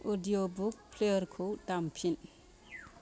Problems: background sounds at intervals